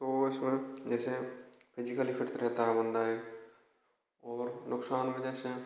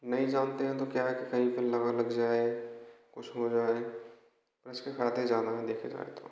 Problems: background sounds at intervals, echo